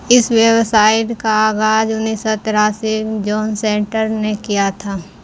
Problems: constant background noise